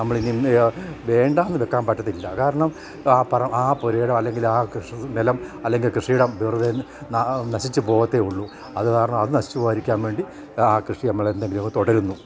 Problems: background sounds at intervals